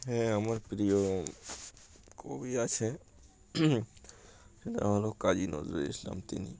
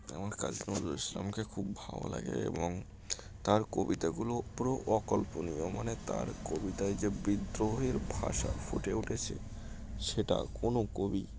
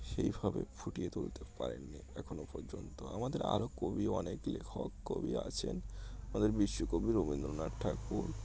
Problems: background sounds at intervals